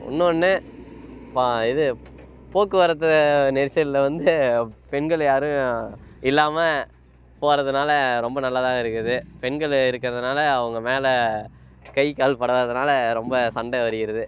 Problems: constant background noise